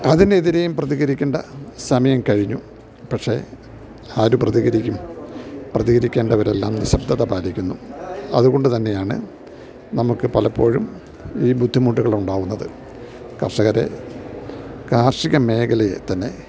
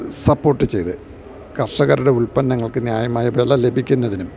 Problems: background sounds at intervals